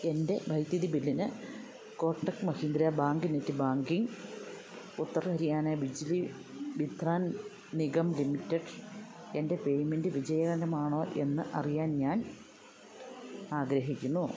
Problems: background sounds at intervals